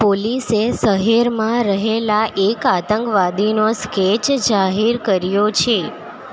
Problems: constant background noise